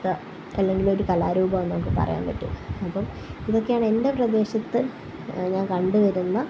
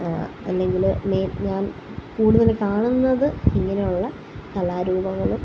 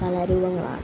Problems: background sounds at intervals, low volume